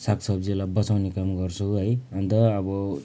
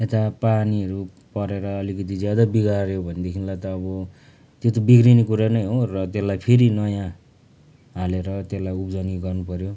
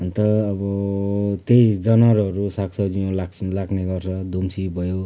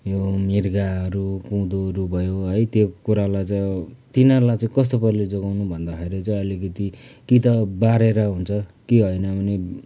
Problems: background sounds at intervals